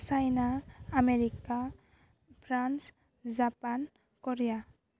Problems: constant background noise